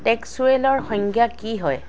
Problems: background sounds at intervals